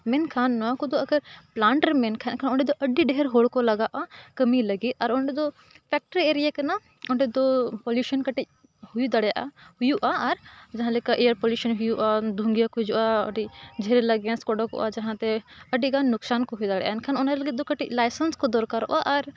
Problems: constant background noise